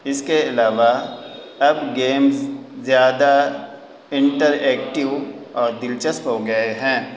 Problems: constant background noise